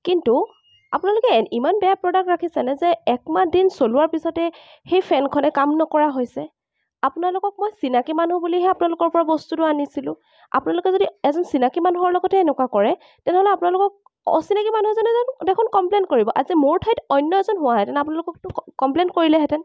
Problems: none marked